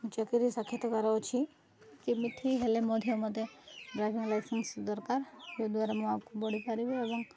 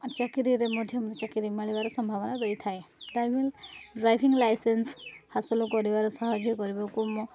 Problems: none marked